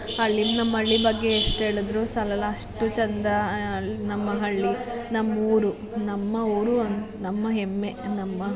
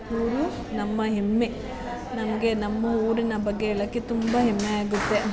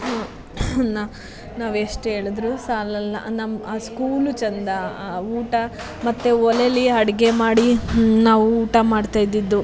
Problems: constant background noise, continuous background conversations